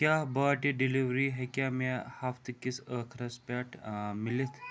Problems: none marked